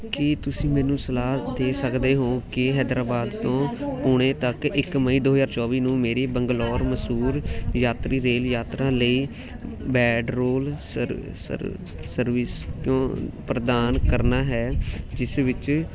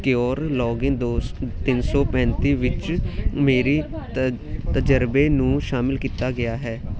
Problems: continuous background conversations